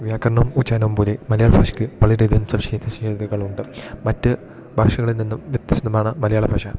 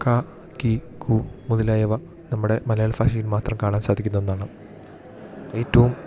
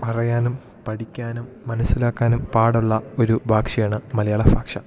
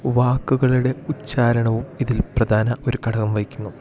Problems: continuous background conversations